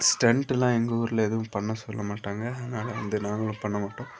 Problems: background sounds at intervals, background conversations at intervals